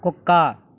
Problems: none marked